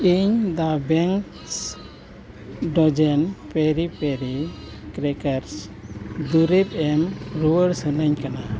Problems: constant background noise